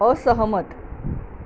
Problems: constant background noise